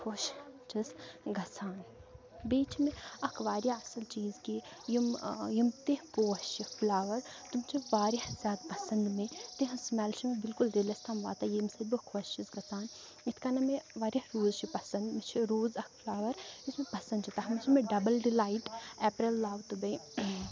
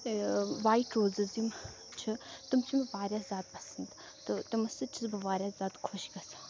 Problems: low volume